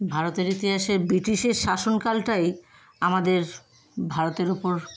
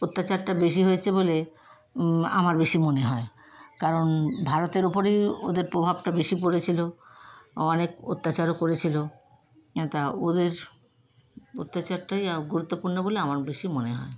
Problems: constant background noise